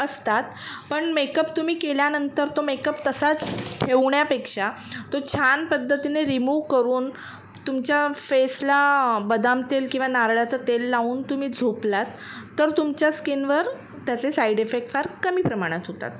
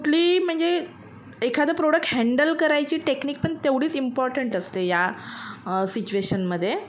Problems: constant background noise, background conversations at intervals